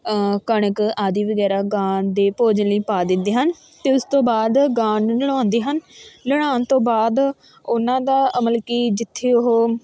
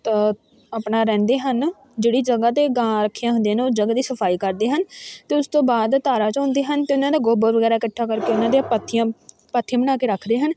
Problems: background sounds at intervals, continuous background conversations